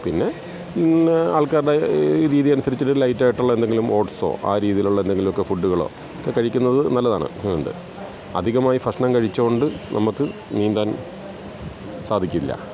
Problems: constant background noise, background conversations at intervals